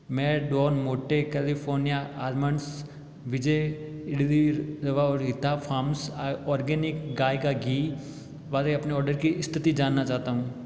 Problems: none marked